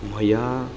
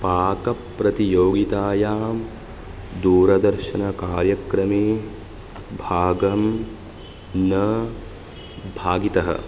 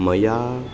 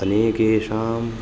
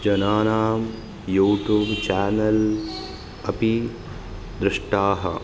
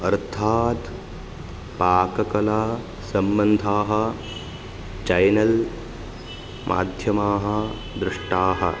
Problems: background sounds at intervals